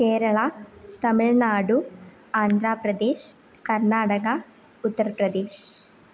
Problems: none marked